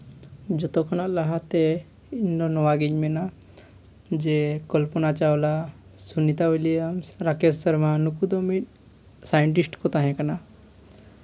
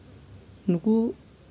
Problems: constant background noise, background conversations at intervals